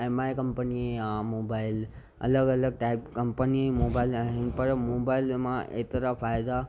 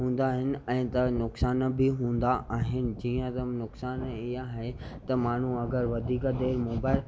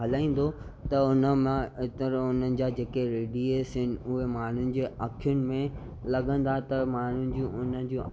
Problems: constant background noise